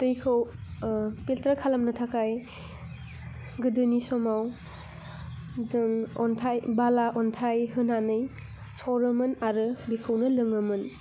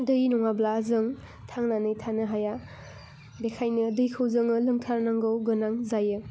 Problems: low volume